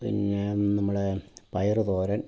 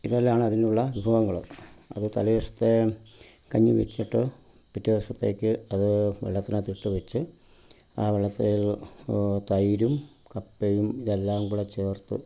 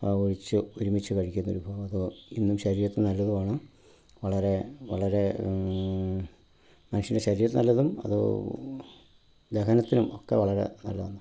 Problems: background sounds at intervals